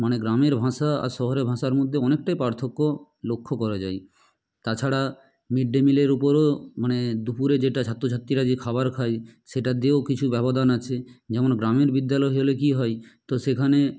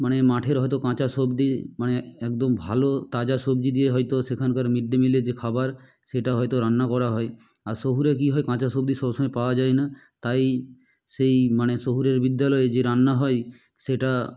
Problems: none marked